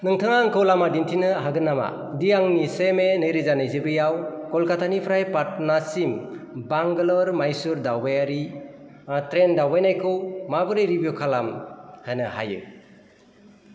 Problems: constant background noise